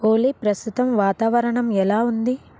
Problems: constant background noise